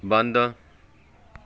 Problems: background sounds at intervals, background conversations at intervals